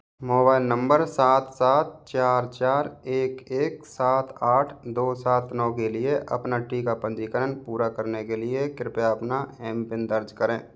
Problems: none marked